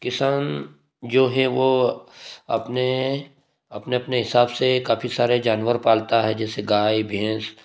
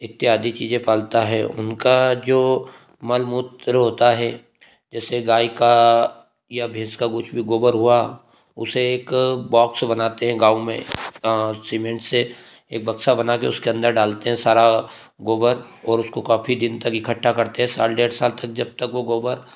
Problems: none marked